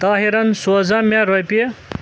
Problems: constant background noise